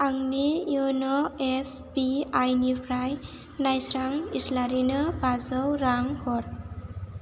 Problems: none marked